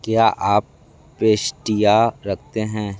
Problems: background sounds at intervals